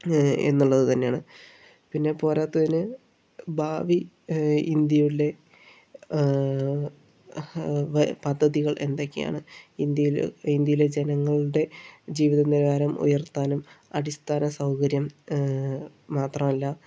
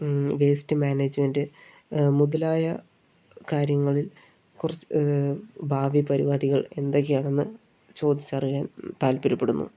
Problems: low volume